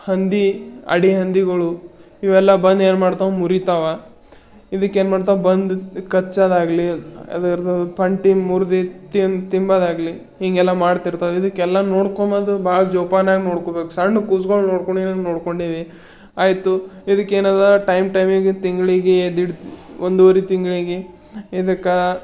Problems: none marked